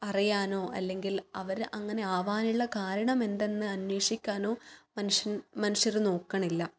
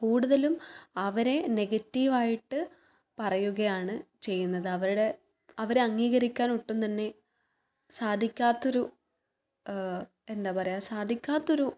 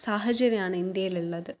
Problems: none marked